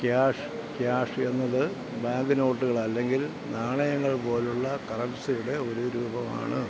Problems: constant background noise, low volume